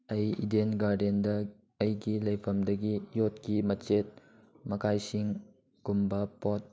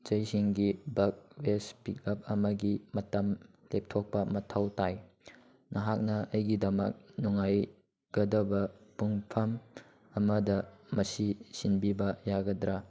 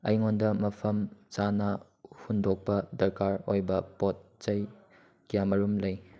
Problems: none marked